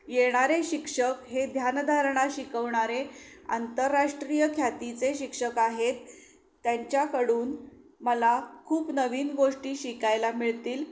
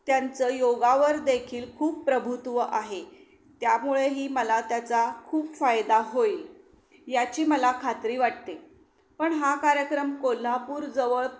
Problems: none marked